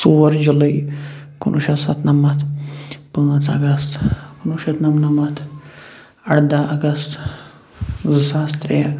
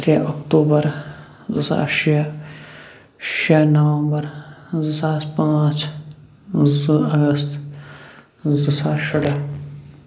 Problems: constant background noise